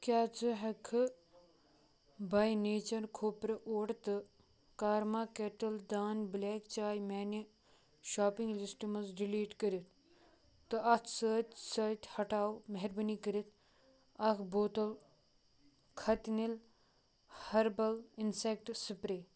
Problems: low volume